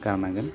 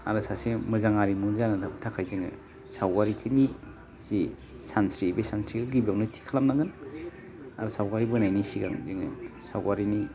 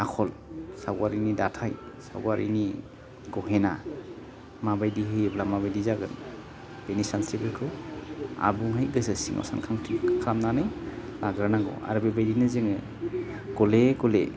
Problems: none marked